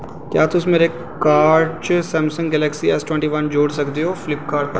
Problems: constant background noise